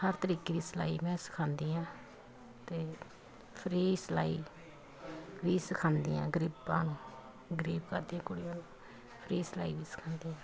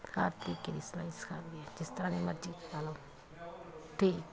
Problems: continuous background conversations